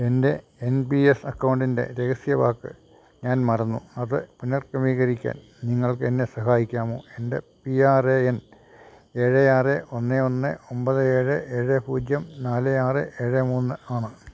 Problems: none marked